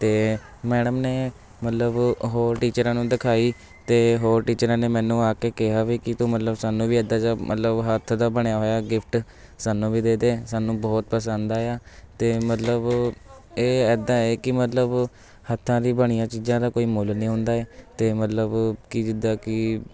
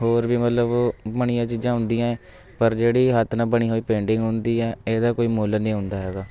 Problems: constant background noise, background conversations at intervals